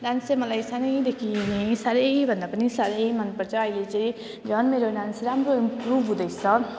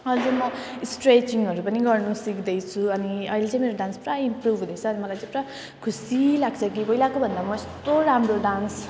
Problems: constant background noise